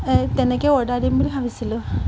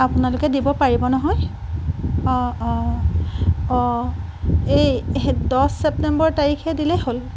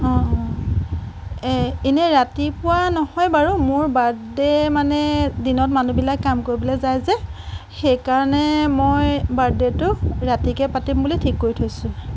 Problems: none marked